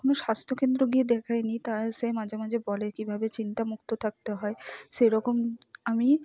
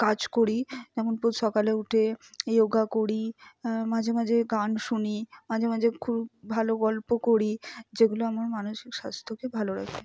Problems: none marked